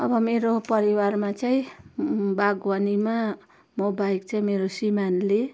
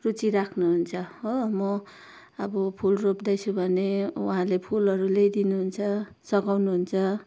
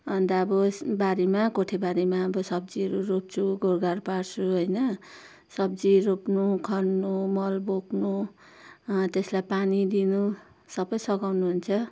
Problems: none marked